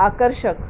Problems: none marked